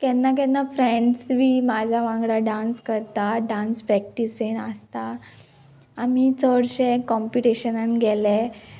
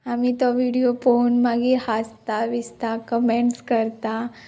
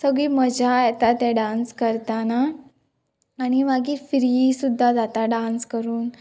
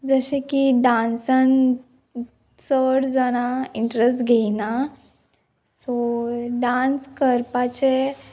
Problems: none marked